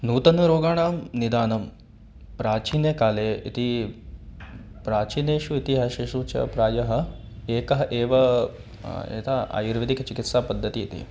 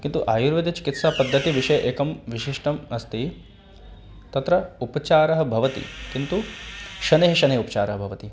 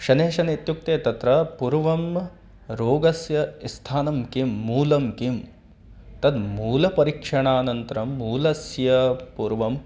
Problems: background sounds at intervals